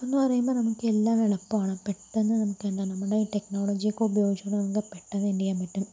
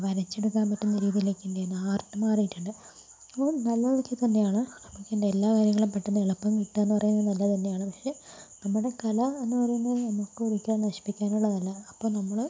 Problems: low volume